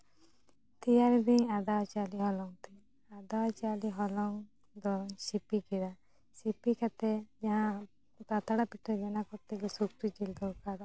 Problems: low volume